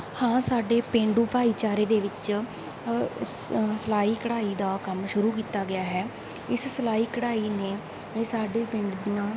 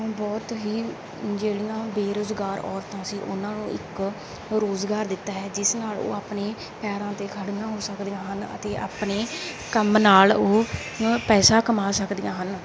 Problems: background sounds at intervals